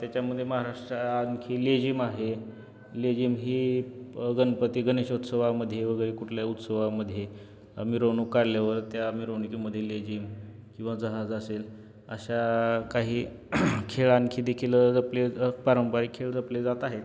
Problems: none marked